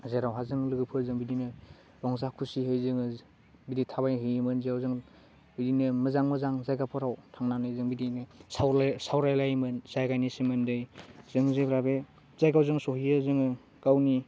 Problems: low volume